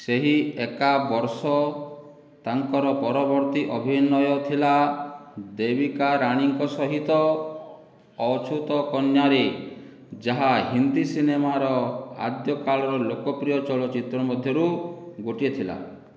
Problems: none marked